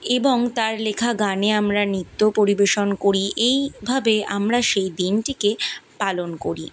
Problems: constant background noise